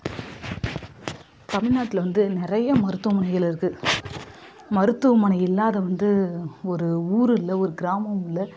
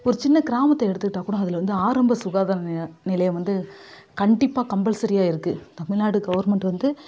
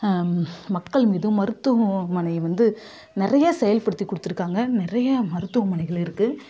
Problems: none marked